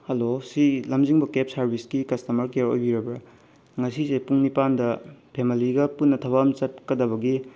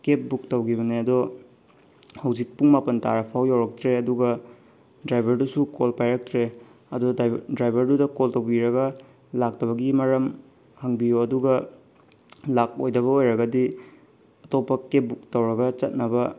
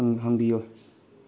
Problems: none marked